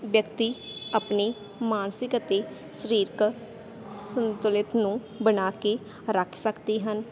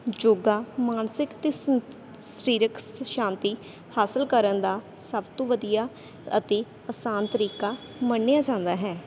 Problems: constant background noise